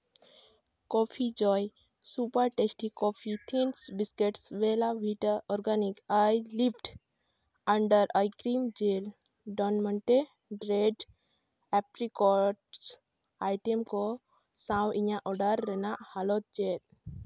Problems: none marked